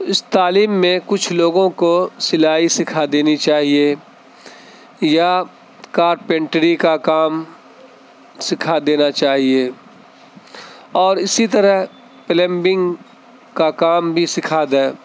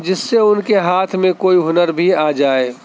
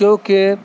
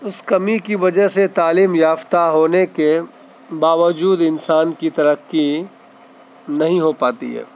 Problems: constant background noise